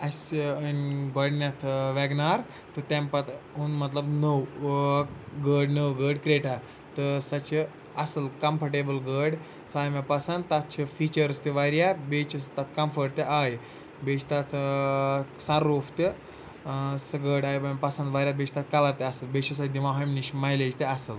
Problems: none marked